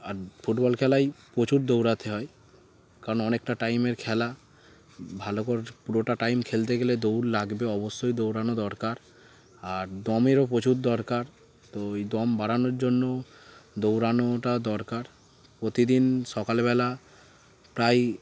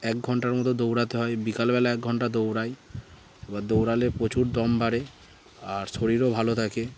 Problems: constant background noise, background conversations at intervals